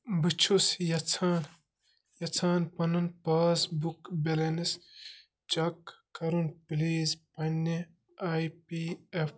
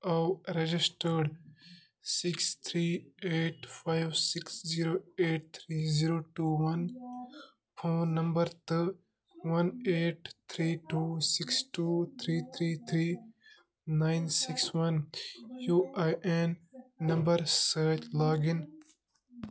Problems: none marked